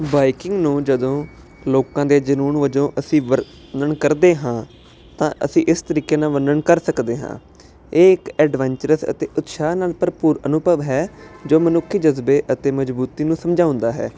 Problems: constant background noise